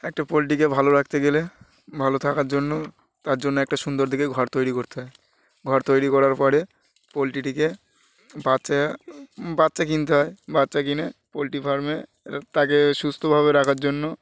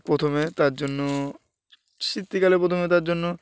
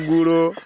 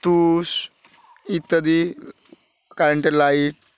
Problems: none marked